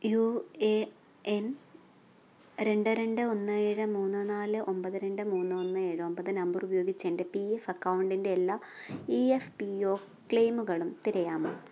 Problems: low volume